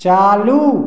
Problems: none marked